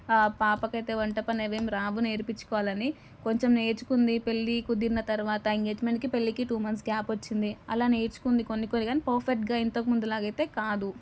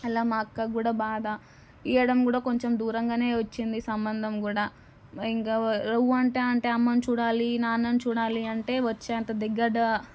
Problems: none marked